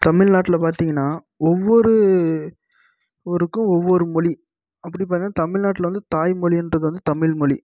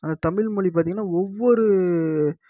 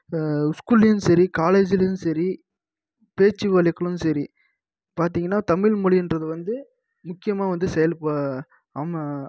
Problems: low volume